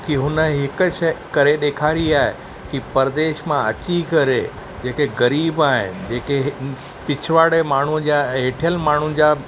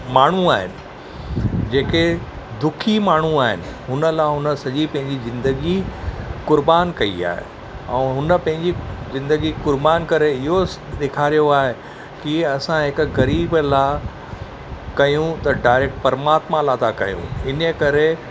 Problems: none marked